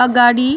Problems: continuous background conversations